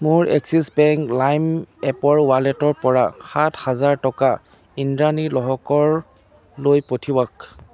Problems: constant background noise